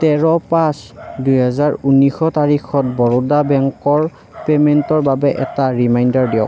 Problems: constant background noise